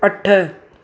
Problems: constant background noise, echo